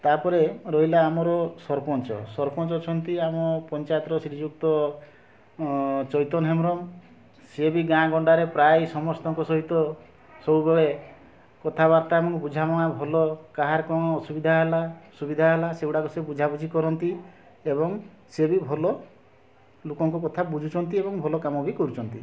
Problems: constant background noise, continuous background conversations